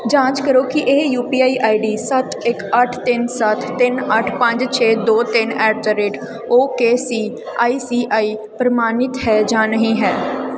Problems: background sounds at intervals